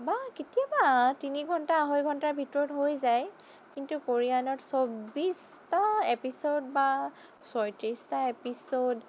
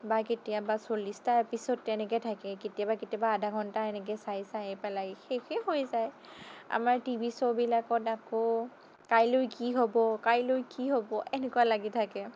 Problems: none marked